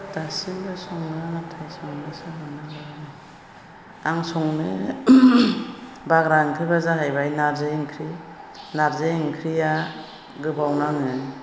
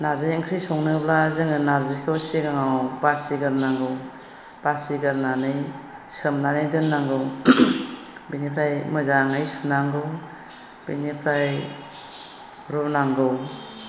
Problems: constant background noise